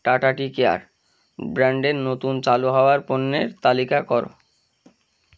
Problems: none marked